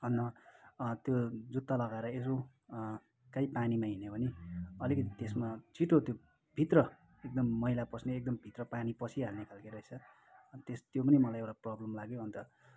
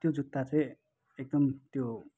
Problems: background sounds at intervals